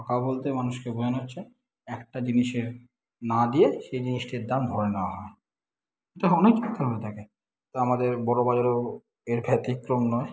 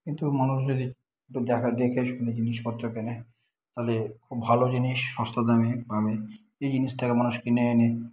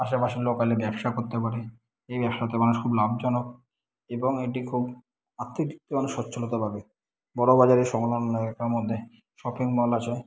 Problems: background sounds at intervals